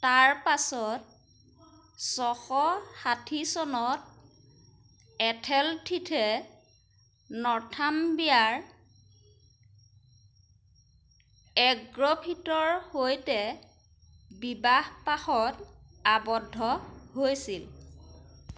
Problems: none marked